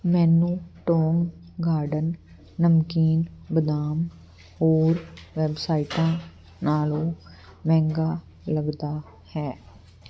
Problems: none marked